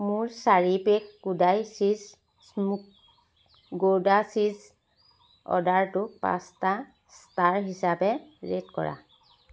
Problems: constant background noise